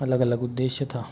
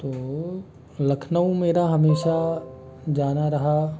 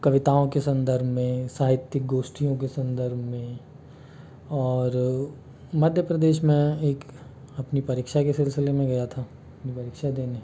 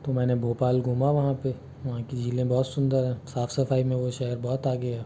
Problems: constant background noise